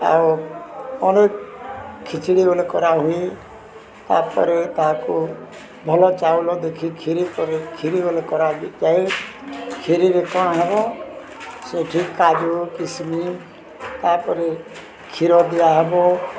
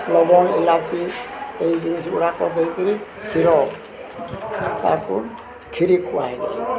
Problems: none marked